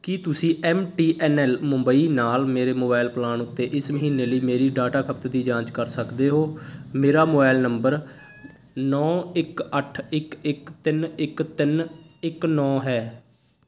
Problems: constant background noise